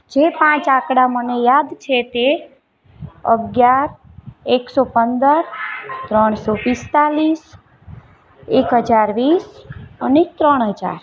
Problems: constant background noise, continuous background conversations